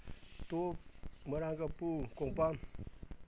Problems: none marked